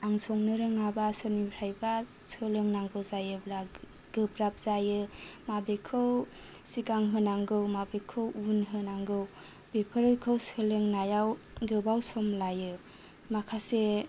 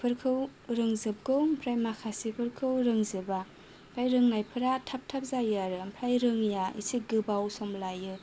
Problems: none marked